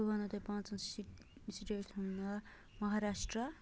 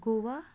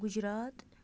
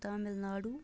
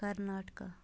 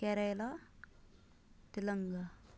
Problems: low volume